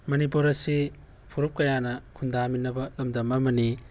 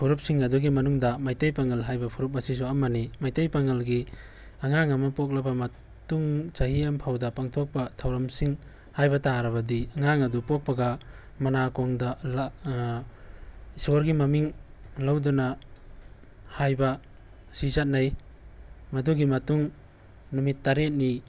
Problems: background sounds at intervals